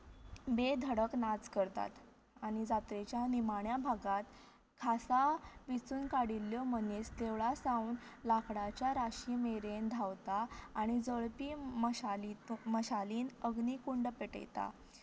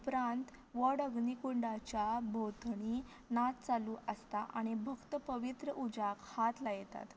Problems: low volume